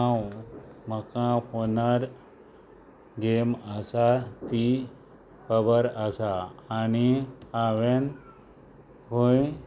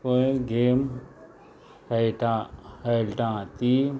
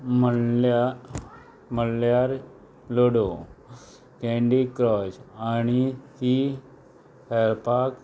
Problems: background sounds at intervals